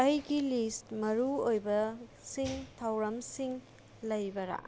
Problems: background sounds at intervals